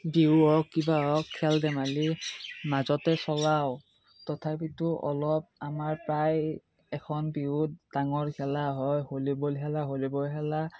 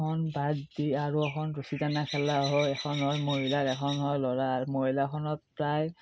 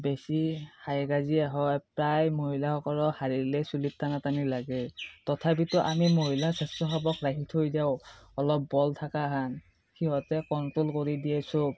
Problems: none marked